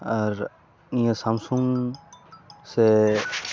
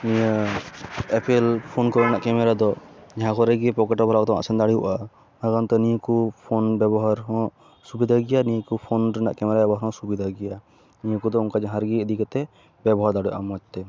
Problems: background sounds at intervals